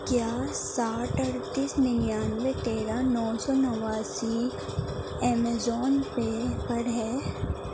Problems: constant background noise, low volume